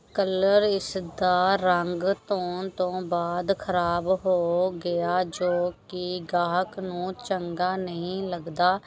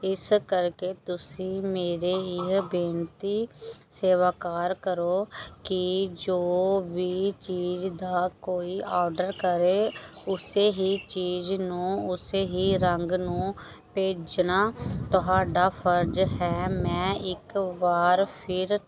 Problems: background sounds at intervals, background conversations at intervals